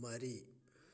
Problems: low volume